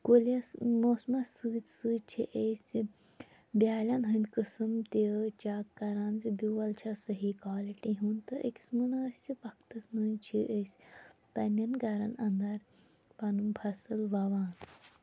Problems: low volume